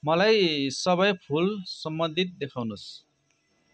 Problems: none marked